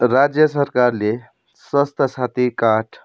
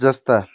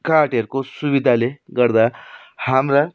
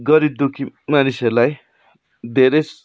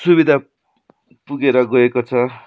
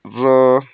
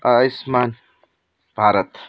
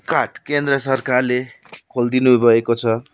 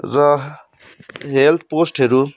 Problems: background sounds at intervals